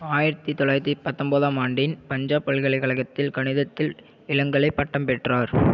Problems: none marked